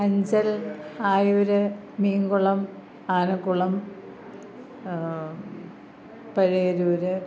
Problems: low volume